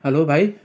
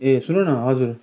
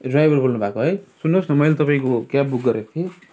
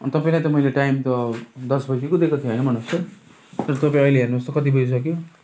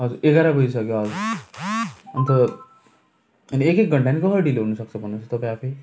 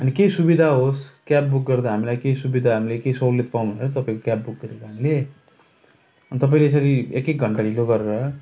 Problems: background sounds at intervals